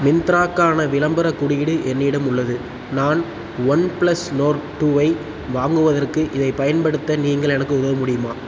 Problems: constant background noise